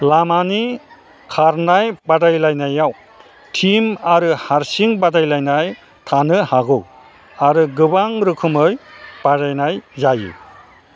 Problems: constant background noise